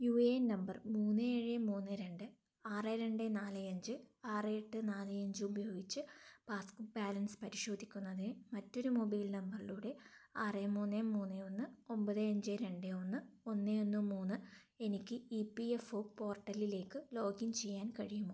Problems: low volume